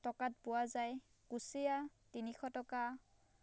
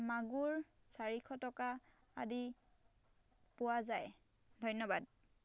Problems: none marked